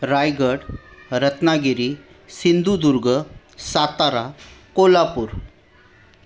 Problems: background sounds at intervals, background conversations at intervals